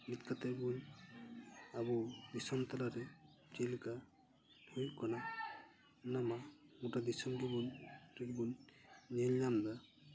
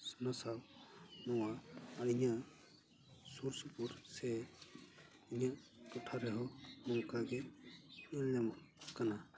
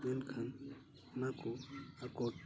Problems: background sounds at intervals, continuous background conversations